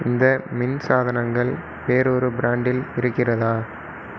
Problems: constant background noise